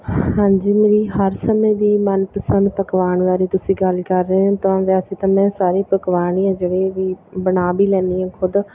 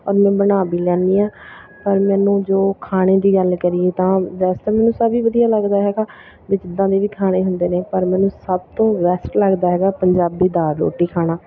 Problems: continuous background conversations